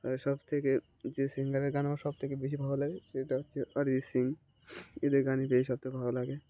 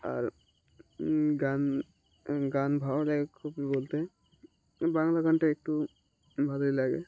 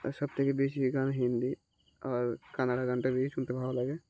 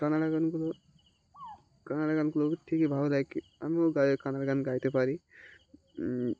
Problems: background sounds at intervals